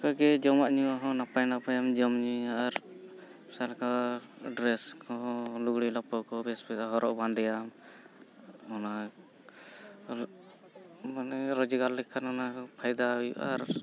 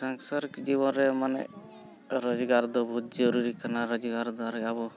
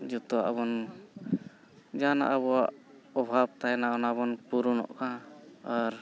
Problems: constant background noise, continuous background conversations